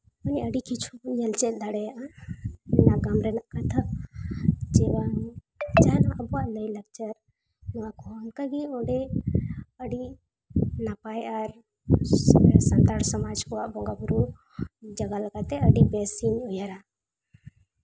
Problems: none marked